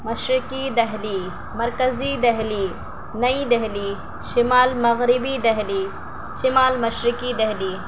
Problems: constant background noise, low volume